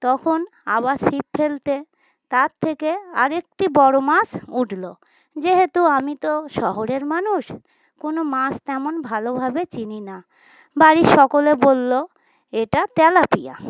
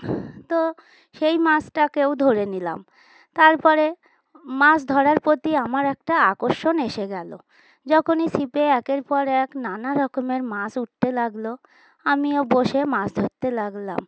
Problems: constant background noise